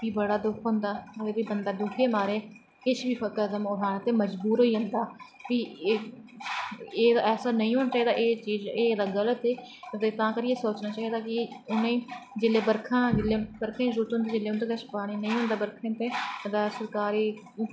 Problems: background sounds at intervals